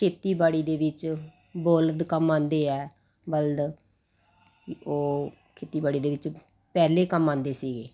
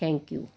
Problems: constant background noise